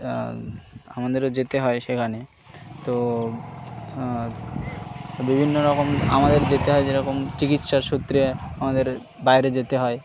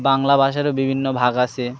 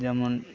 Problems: none marked